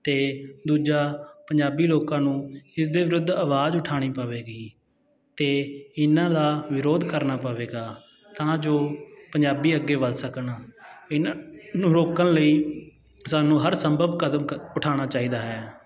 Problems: constant background noise